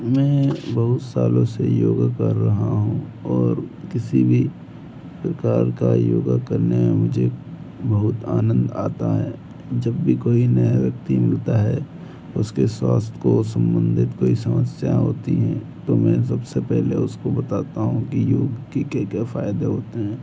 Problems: background sounds at intervals